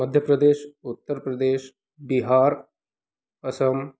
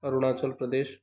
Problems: background sounds at intervals